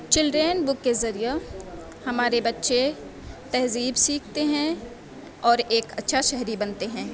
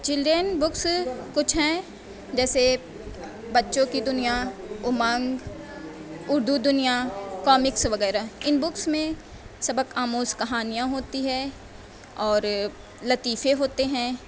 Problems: constant background noise